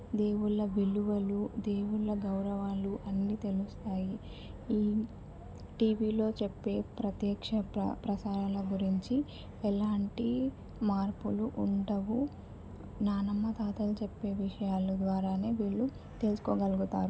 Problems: constant background noise